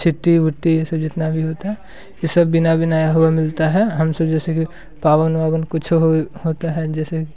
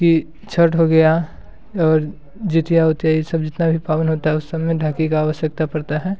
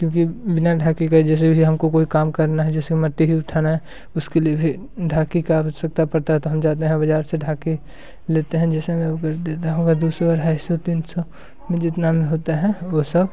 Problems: background sounds at intervals